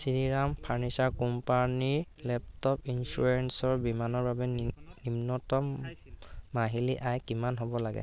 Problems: constant background noise